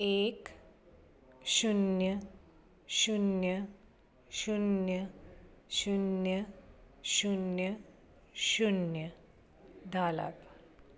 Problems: none marked